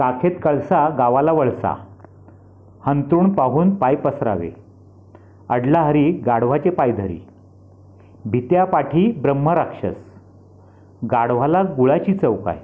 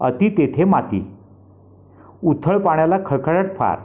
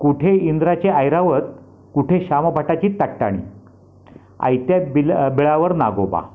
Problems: constant background noise, background conversations at intervals